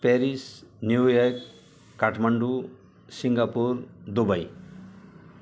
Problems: none marked